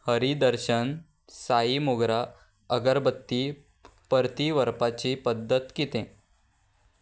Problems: background sounds at intervals